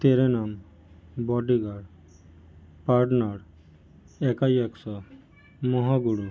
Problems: background sounds at intervals, background conversations at intervals